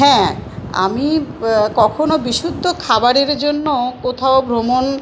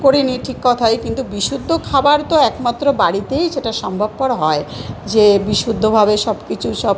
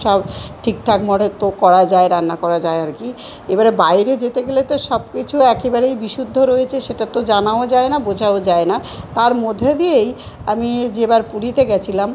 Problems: none marked